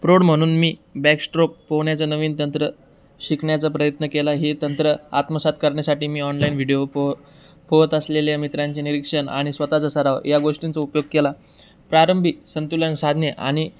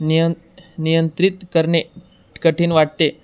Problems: background sounds at intervals